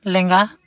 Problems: none marked